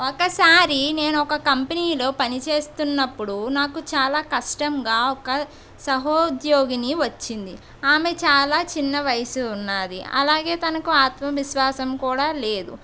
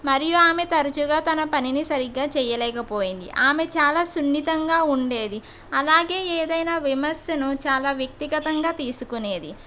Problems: none marked